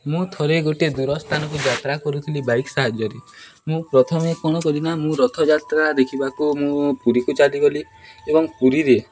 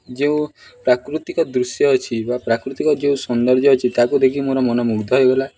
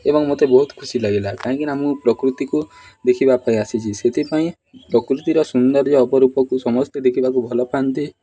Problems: background sounds at intervals